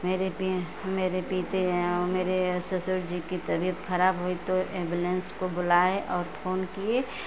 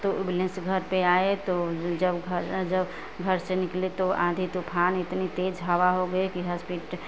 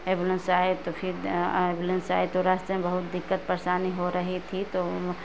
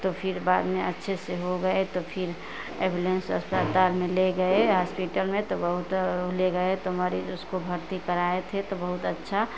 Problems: constant background noise